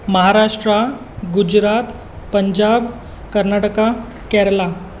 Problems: constant background noise